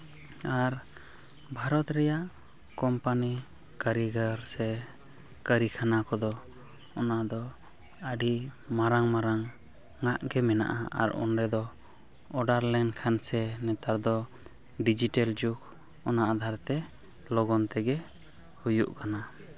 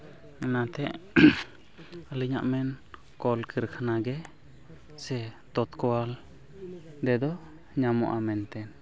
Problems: background sounds at intervals, continuous background conversations